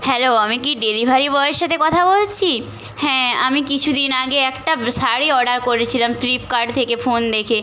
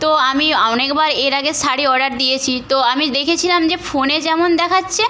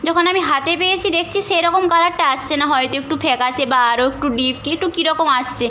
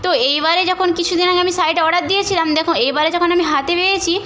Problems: background sounds at intervals